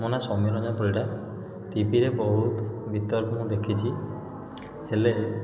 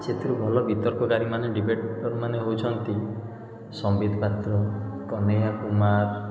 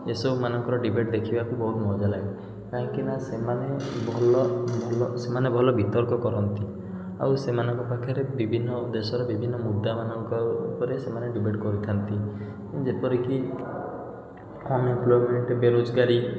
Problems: echo